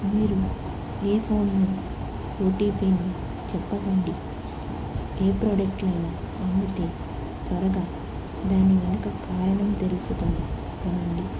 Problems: constant background noise